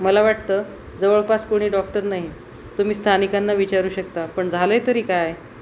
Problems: constant background noise